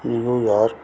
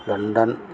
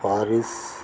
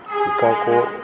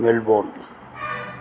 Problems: constant background noise